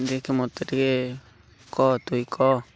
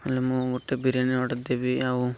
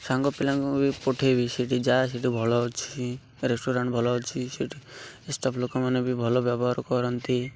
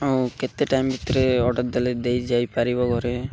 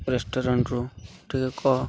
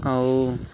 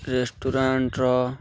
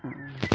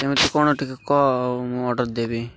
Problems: constant background noise